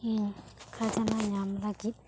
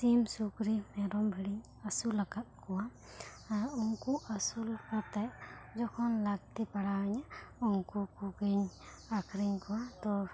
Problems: none marked